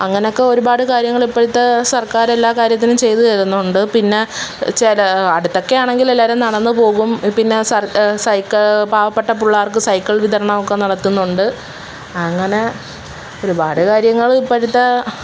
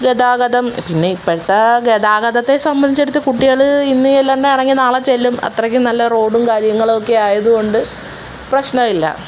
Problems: background sounds at intervals